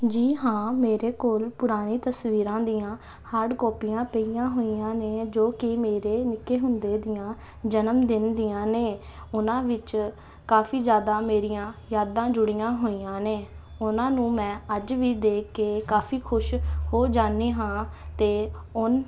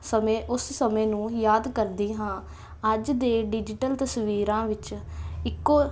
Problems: constant background noise